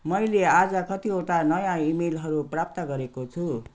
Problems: none marked